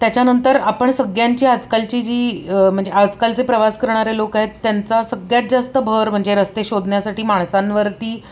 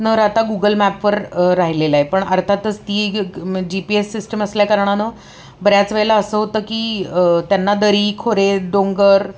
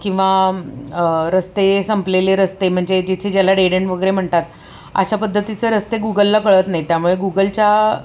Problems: constant background noise, background conversations at intervals